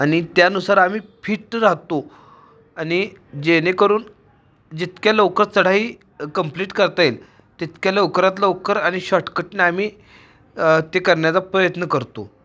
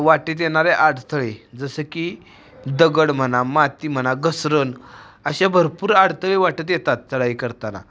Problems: constant background noise